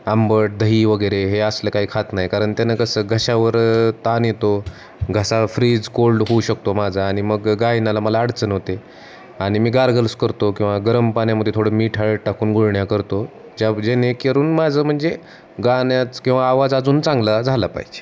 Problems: constant background noise, background conversations at intervals